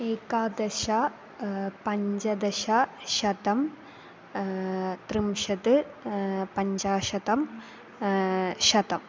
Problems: constant background noise